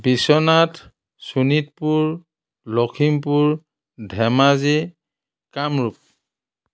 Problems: none marked